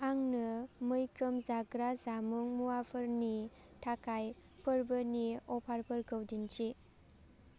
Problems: constant background noise